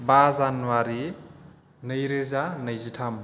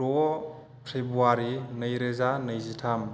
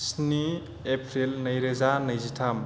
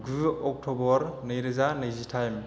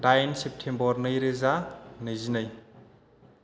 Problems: none marked